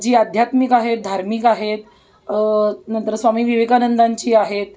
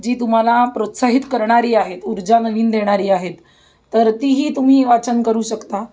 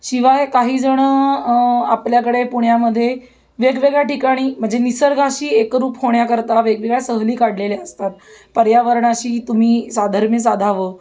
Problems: none marked